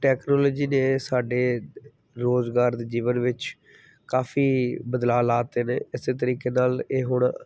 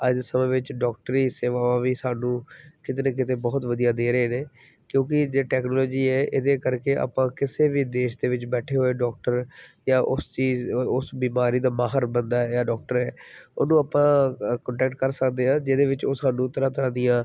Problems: background sounds at intervals